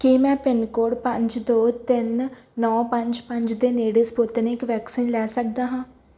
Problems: background sounds at intervals